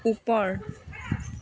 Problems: background conversations at intervals